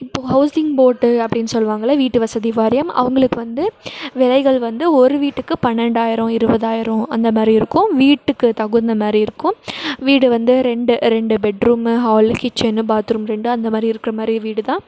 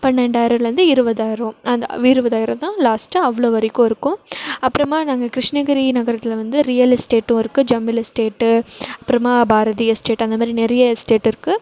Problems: background sounds at intervals